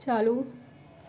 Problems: background sounds at intervals